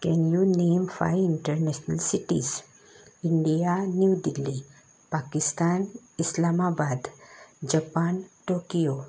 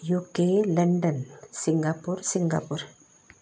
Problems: constant background noise